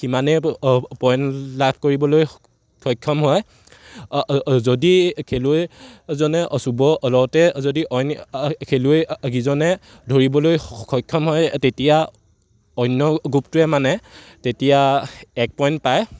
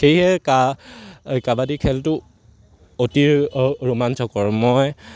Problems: none marked